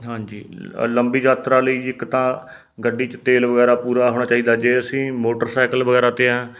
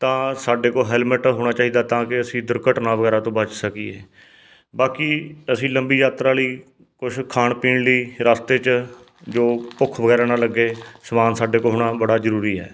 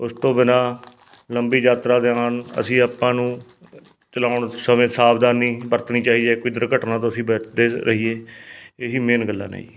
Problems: background sounds at intervals